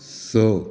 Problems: none marked